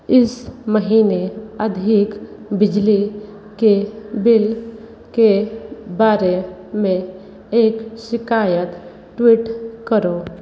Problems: none marked